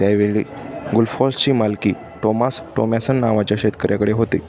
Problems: constant background noise